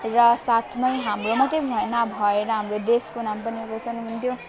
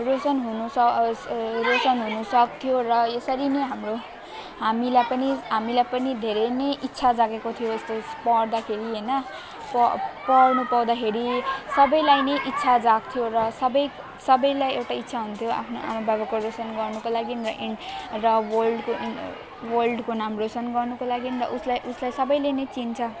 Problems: constant background noise, continuous background conversations